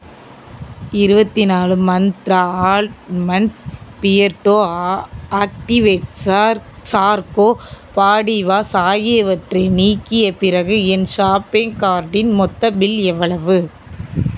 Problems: constant background noise